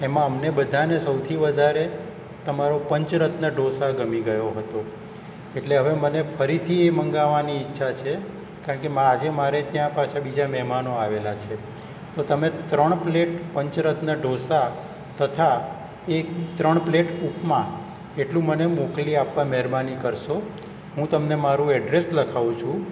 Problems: none marked